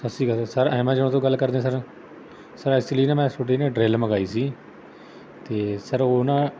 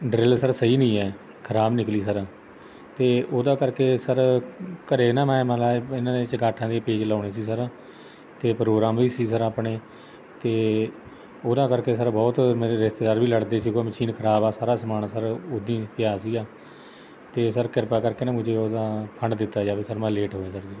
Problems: none marked